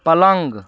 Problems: constant background noise